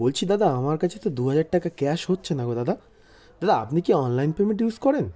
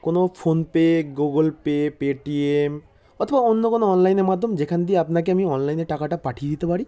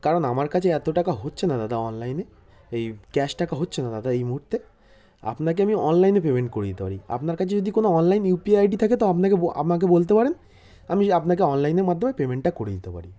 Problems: constant background noise